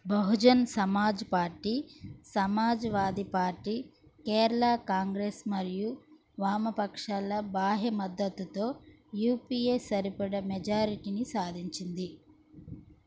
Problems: constant background noise